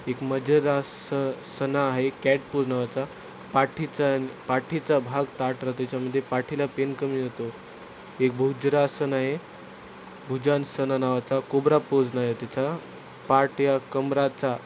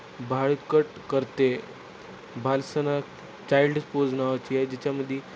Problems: constant background noise